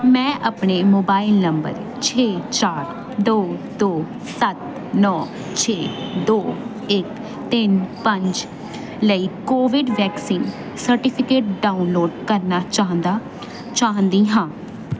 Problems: none marked